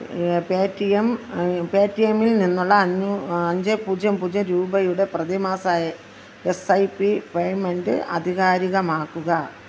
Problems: constant background noise